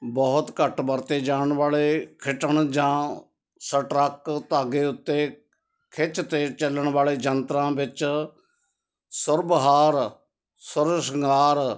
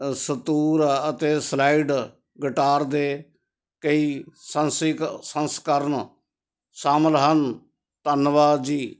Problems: constant background noise